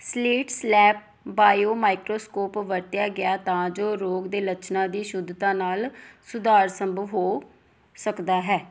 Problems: background sounds at intervals